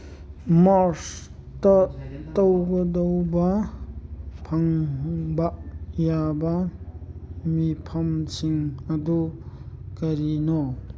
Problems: none marked